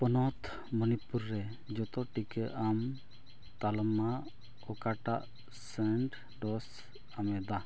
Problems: background sounds at intervals